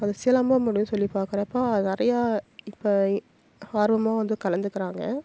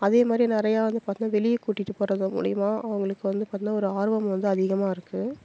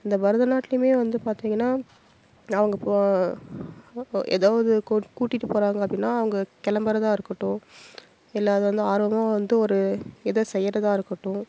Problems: constant background noise